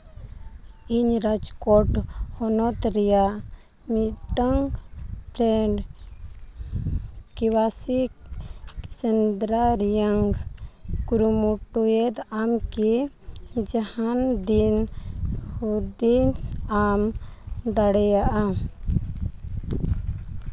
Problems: constant background noise